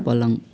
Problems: constant background noise